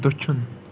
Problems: constant background noise, low volume